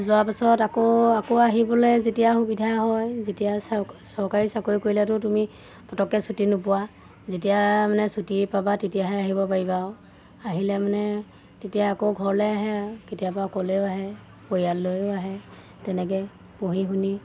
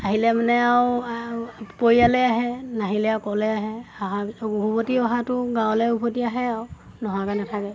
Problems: constant background noise